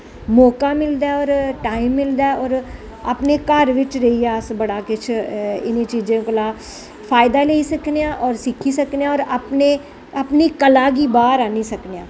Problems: none marked